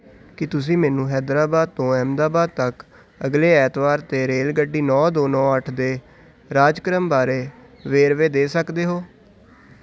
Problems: none marked